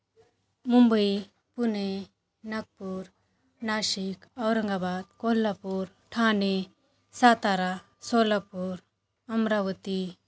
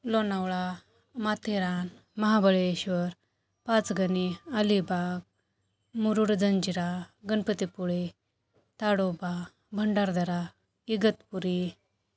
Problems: constant background noise